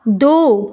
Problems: background sounds at intervals